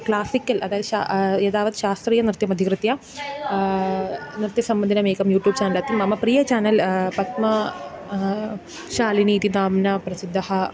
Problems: background sounds at intervals